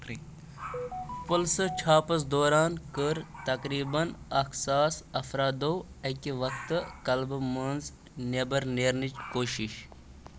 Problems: constant background noise